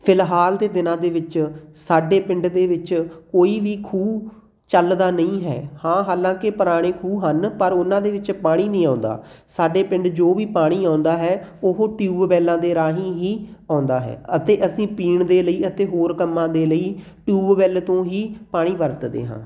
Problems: background sounds at intervals